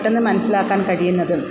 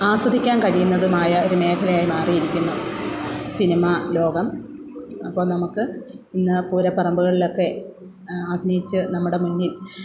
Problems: background conversations at intervals